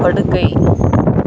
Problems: constant background noise